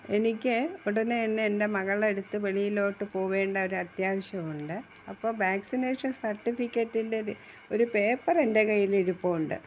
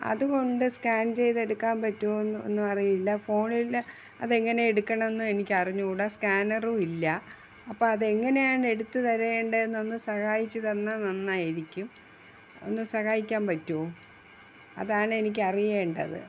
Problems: none marked